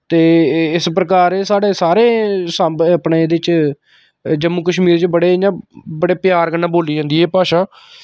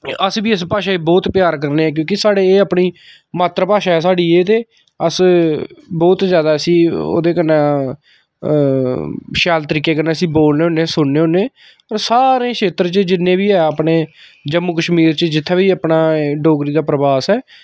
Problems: none marked